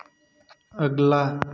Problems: background sounds at intervals